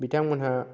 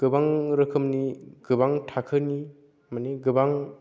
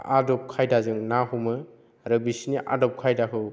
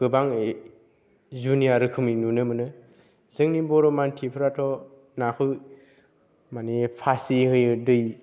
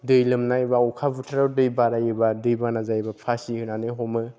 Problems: none marked